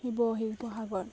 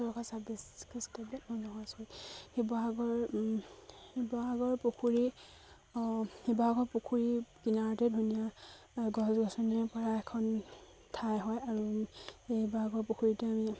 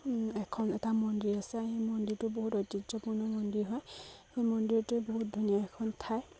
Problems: constant background noise, background conversations at intervals